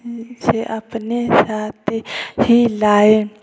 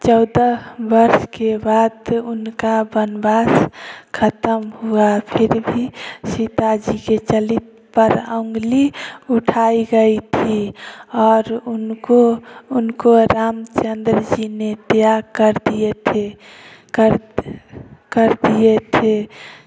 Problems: constant background noise